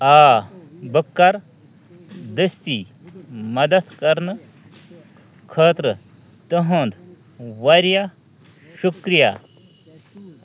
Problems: constant background noise, continuous background conversations